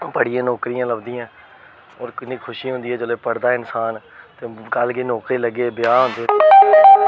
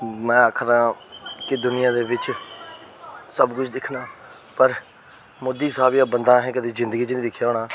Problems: constant background noise